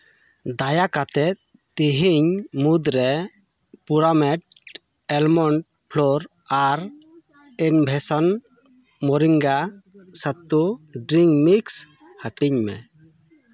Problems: background sounds at intervals, background conversations at intervals